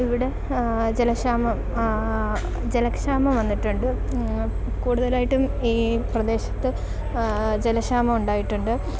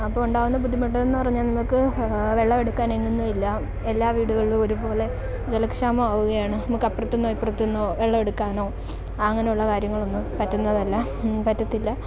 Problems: constant background noise